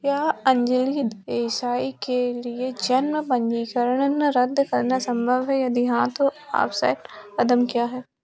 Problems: constant background noise